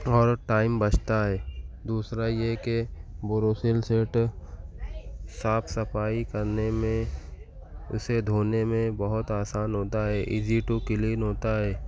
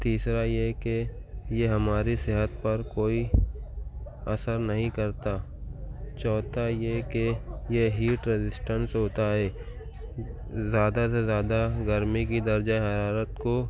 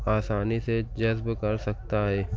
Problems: background conversations at intervals